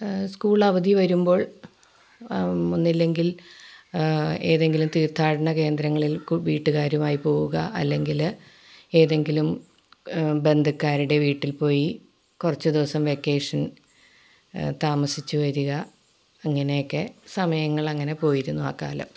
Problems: none marked